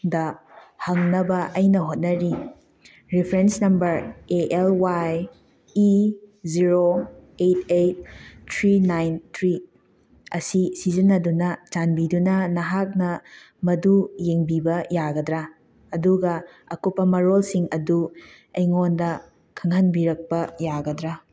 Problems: background sounds at intervals